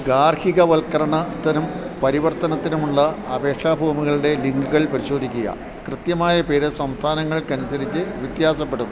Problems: constant background noise